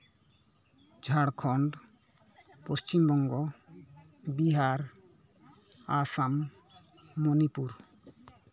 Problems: background conversations at intervals